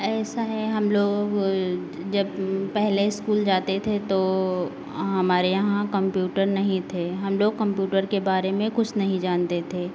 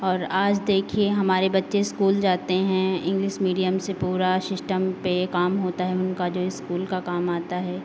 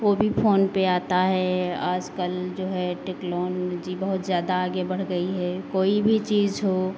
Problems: none marked